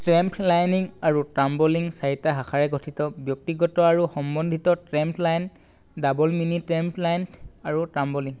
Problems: none marked